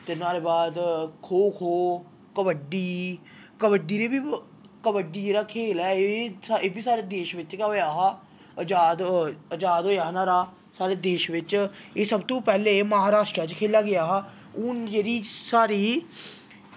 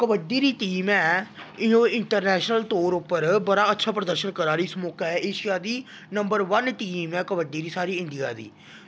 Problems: background sounds at intervals